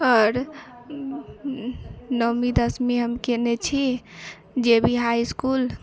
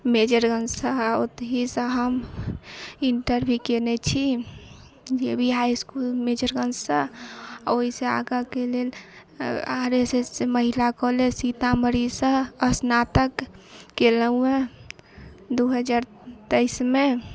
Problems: constant background noise, echo